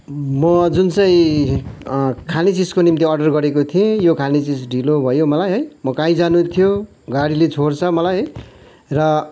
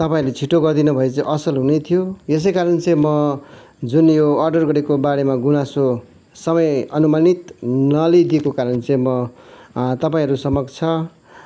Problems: constant background noise